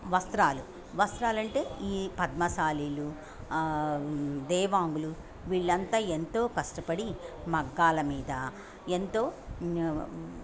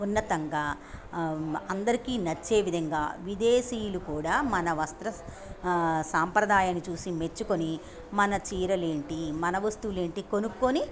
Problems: none marked